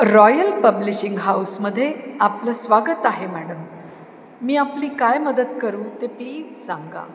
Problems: constant background noise, echo